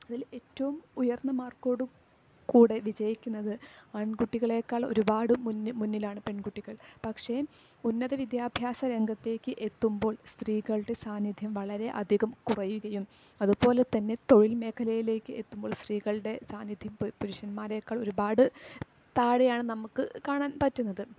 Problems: low volume